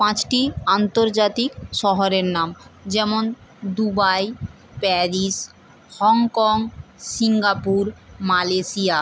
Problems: constant background noise